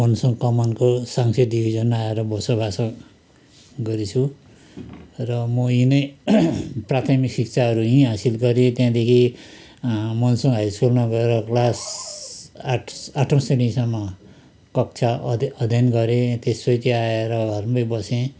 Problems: constant background noise